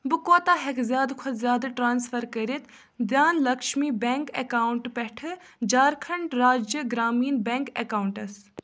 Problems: none marked